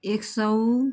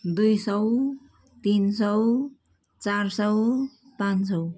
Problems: background sounds at intervals